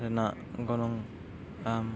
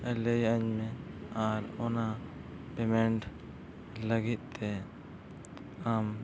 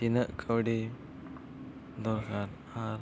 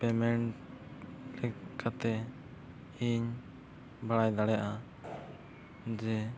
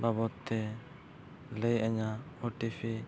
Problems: constant background noise, background conversations at intervals, low volume